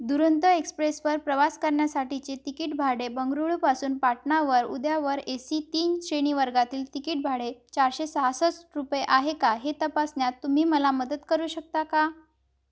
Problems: background sounds at intervals